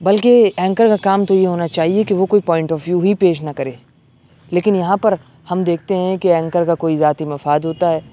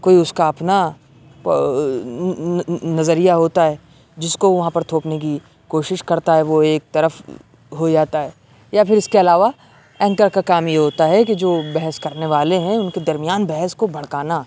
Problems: constant background noise